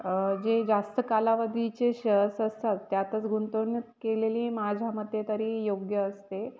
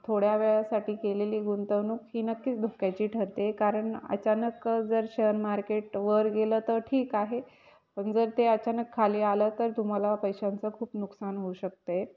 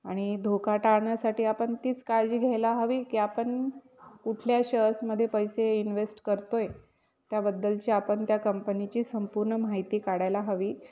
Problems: background sounds at intervals